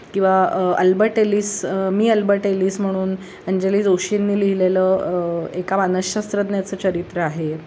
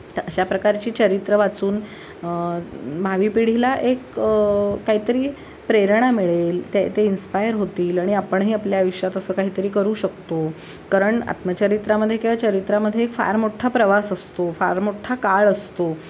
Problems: none marked